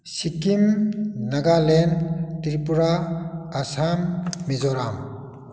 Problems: none marked